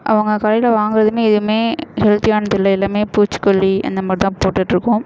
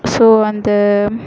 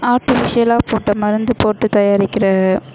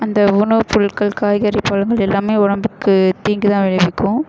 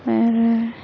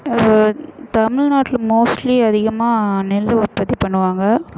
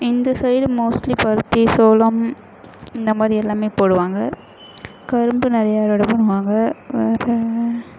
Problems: background sounds at intervals